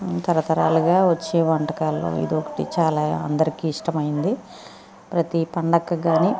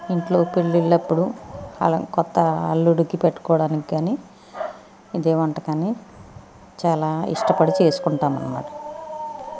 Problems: constant background noise